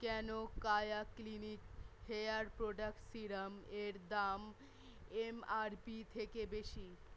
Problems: none marked